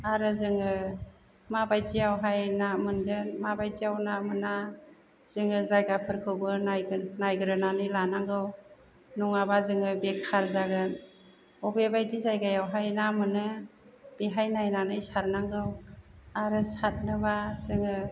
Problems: none marked